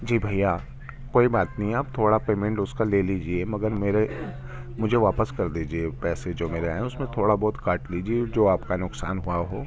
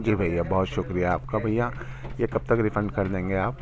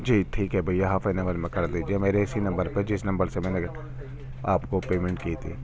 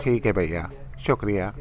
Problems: constant background noise, continuous background conversations